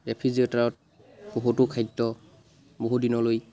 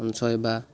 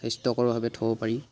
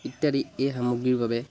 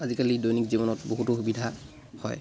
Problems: background sounds at intervals